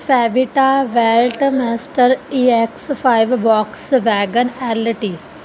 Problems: background sounds at intervals